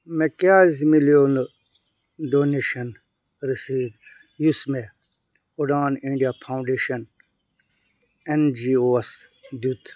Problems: none marked